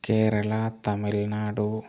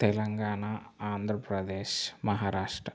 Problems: constant background noise